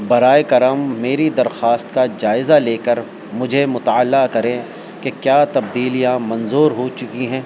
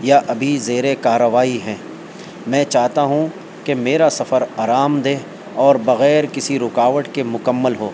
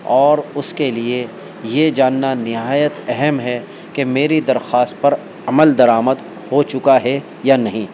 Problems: constant background noise